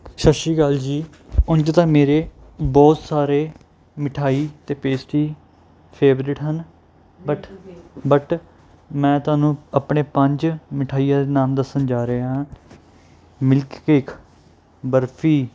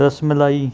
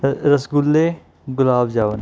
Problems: background conversations at intervals